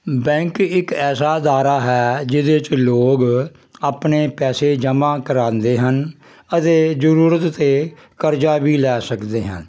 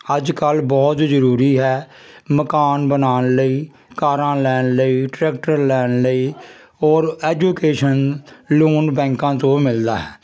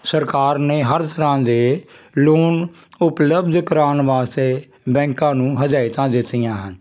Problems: constant background noise